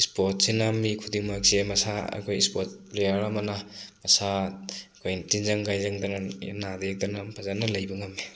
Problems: constant background noise